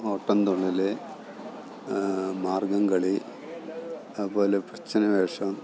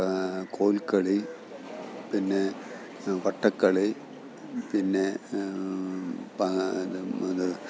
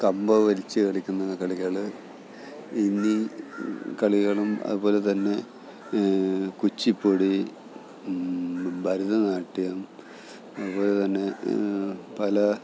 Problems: background sounds at intervals, low volume